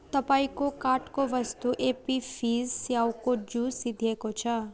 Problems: background conversations at intervals